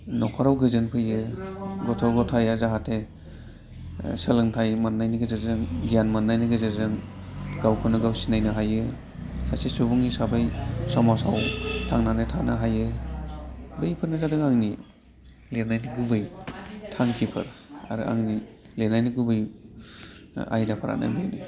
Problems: constant background noise